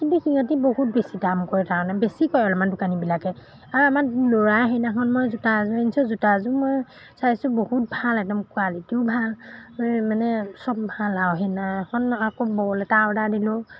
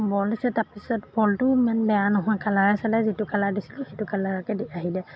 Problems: none marked